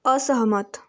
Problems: background sounds at intervals